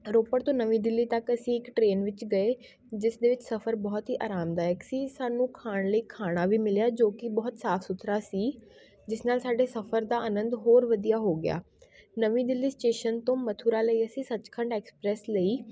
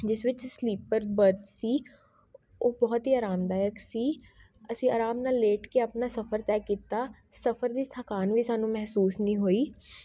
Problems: background sounds at intervals, background conversations at intervals